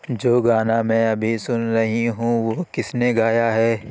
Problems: constant background noise